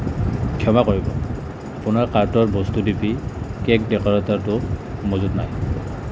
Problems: constant background noise